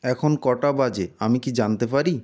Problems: constant background noise